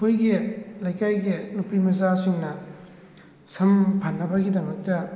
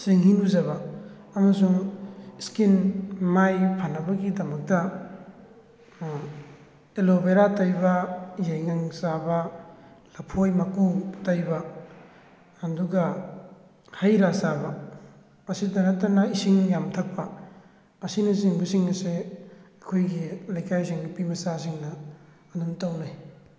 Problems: background conversations at intervals